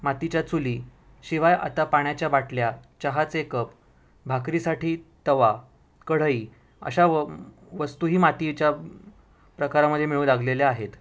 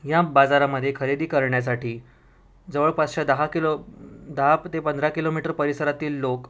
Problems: none marked